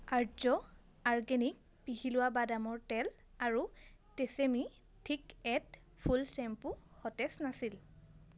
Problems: constant background noise